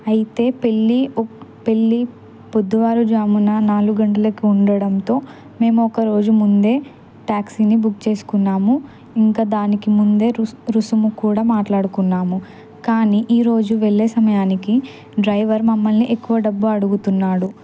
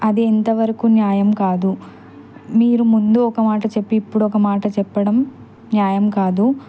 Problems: background sounds at intervals